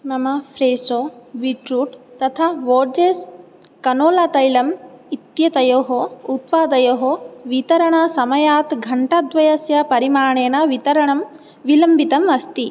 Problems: none marked